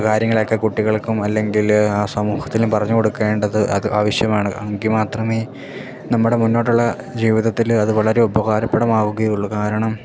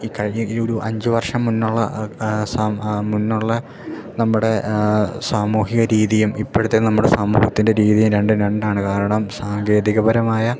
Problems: none marked